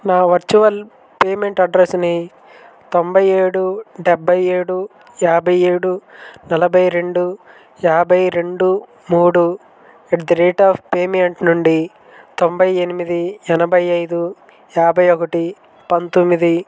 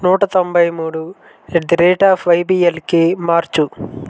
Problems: constant background noise